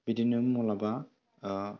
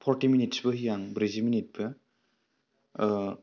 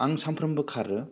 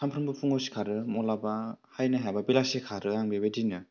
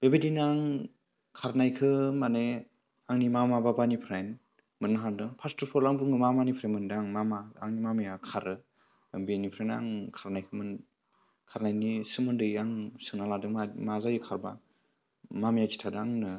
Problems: low volume